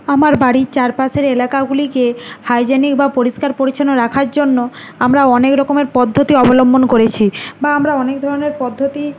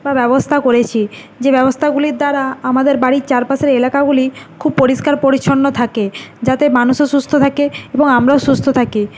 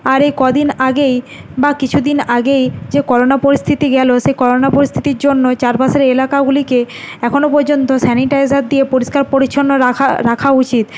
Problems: none marked